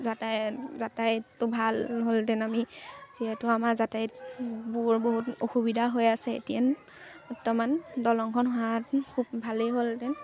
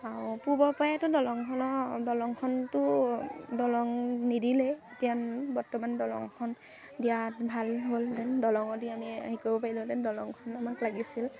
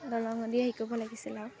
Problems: constant background noise, background conversations at intervals